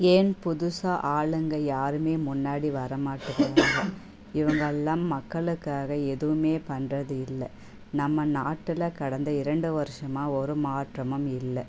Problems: background conversations at intervals